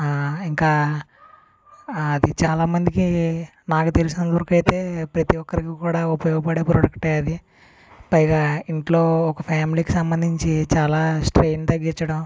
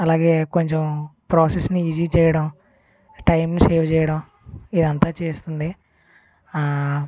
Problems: constant background noise